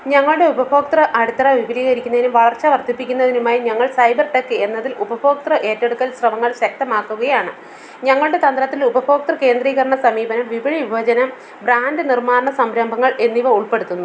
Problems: constant background noise